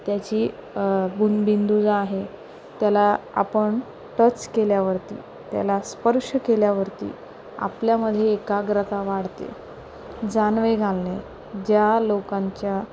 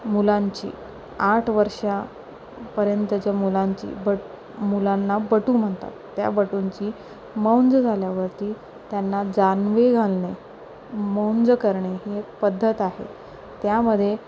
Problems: none marked